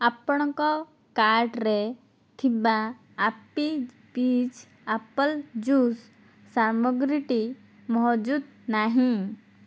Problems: none marked